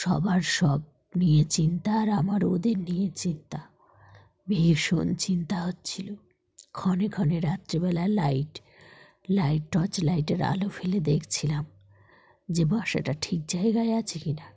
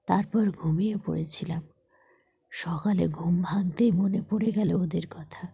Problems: background sounds at intervals